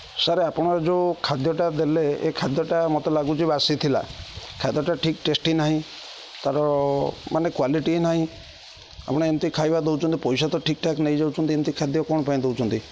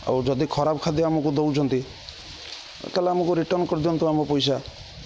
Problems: constant background noise, continuous background conversations